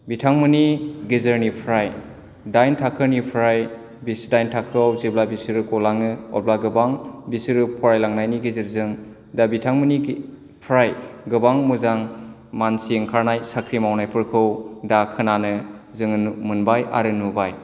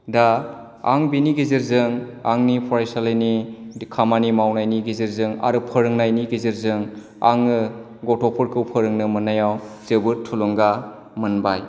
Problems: low volume